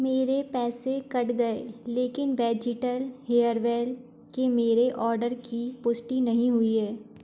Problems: background sounds at intervals